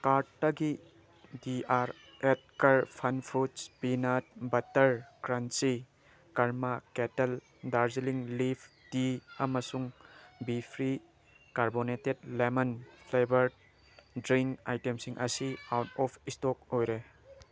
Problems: background sounds at intervals